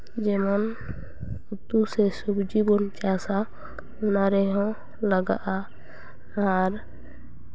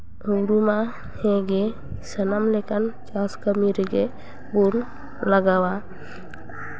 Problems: constant background noise, background conversations at intervals